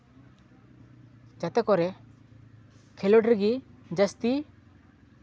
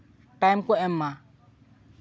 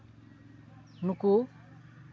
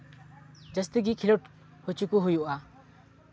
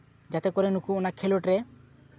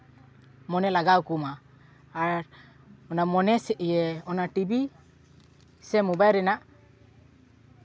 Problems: background sounds at intervals, continuous background conversations